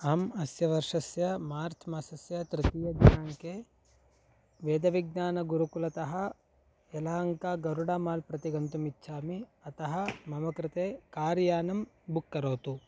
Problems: low volume